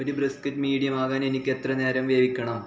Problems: background sounds at intervals